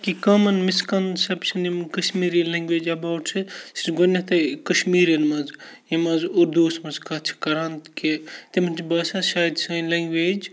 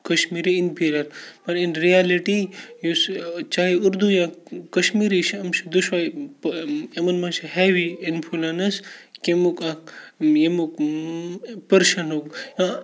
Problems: none marked